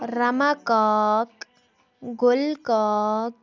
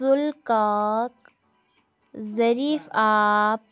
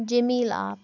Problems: background sounds at intervals, background conversations at intervals